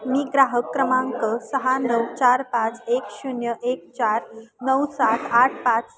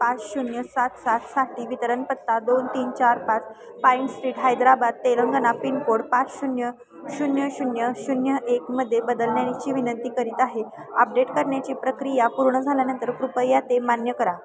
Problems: constant background noise